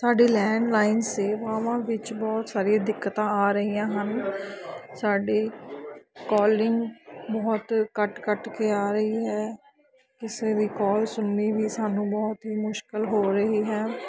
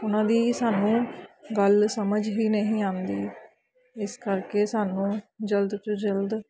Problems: background sounds at intervals, continuous background conversations